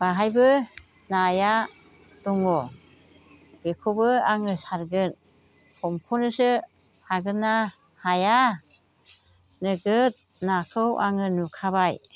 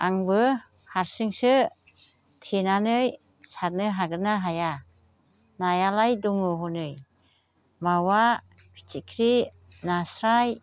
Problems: constant background noise